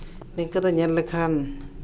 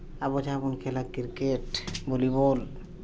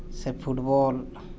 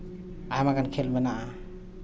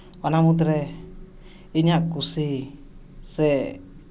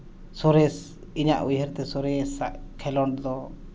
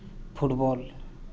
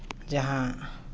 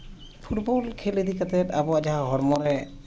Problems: none marked